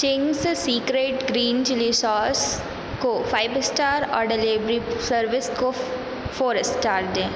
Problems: constant background noise